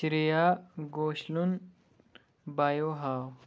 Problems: background sounds at intervals